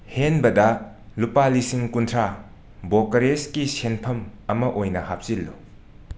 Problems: constant background noise